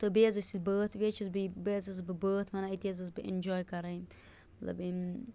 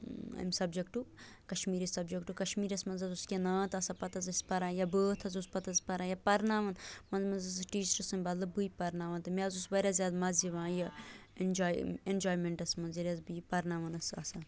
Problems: constant background noise